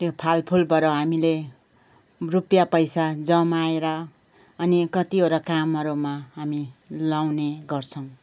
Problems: background sounds at intervals